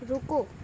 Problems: constant background noise